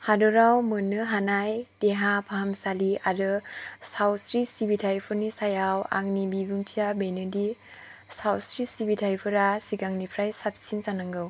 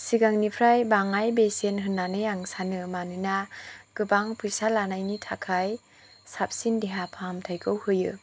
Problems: low volume